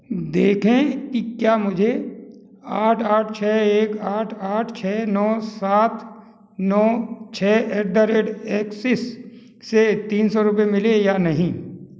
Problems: background sounds at intervals